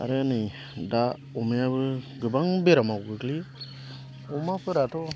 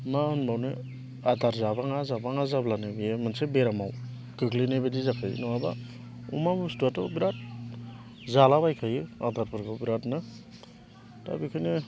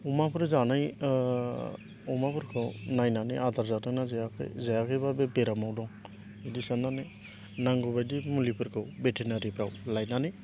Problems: none marked